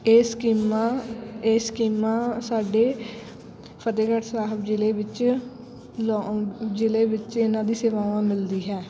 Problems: constant background noise, continuous background conversations